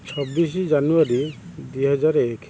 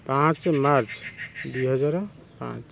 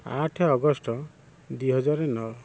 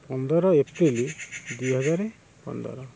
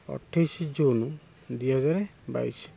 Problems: constant background noise